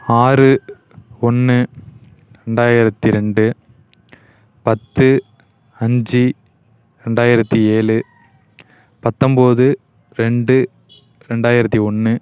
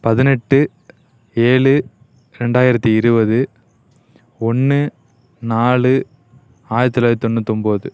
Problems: none marked